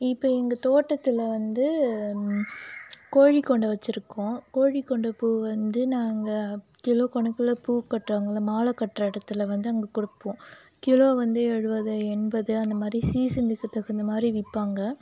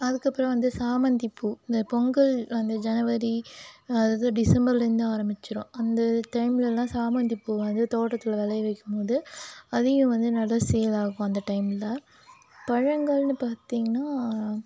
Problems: constant background noise